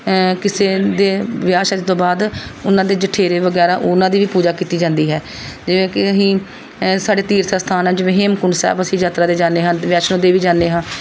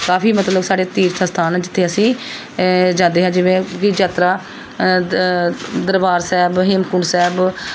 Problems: background sounds at intervals, background conversations at intervals